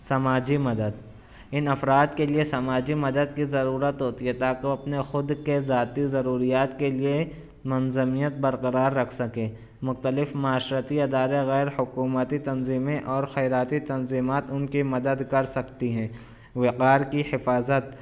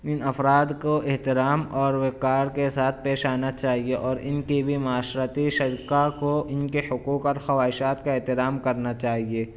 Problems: none marked